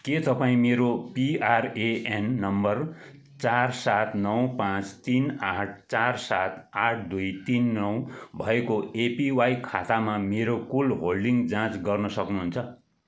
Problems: background sounds at intervals